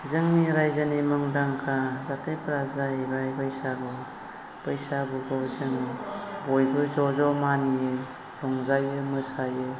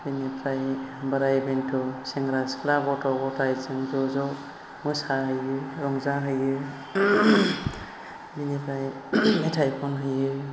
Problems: constant background noise